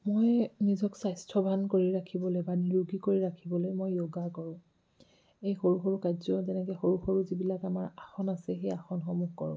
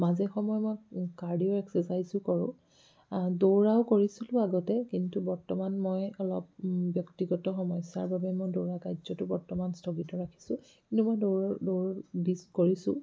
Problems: low volume